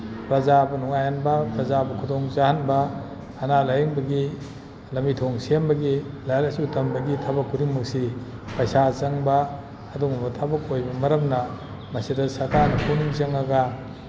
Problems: background sounds at intervals